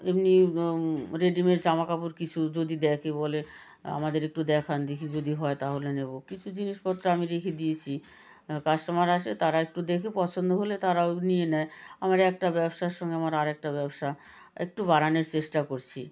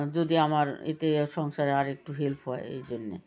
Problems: continuous background conversations